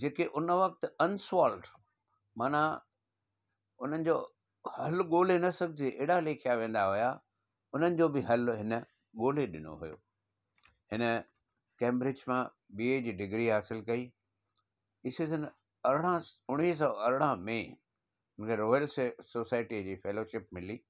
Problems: background sounds at intervals